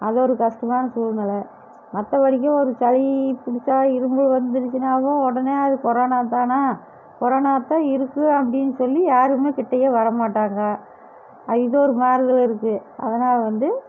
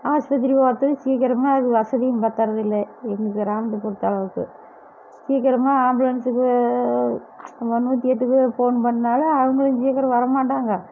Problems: none marked